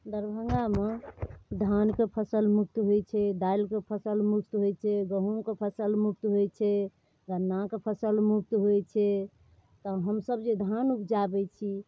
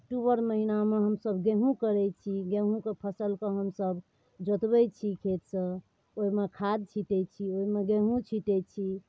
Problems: none marked